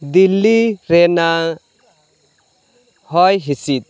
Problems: none marked